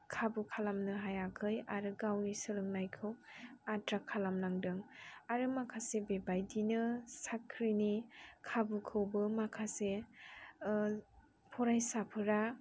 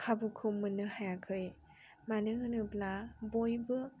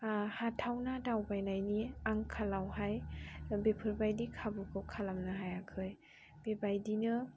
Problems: none marked